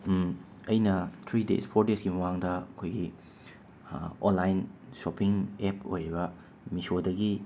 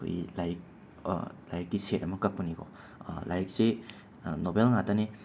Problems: constant background noise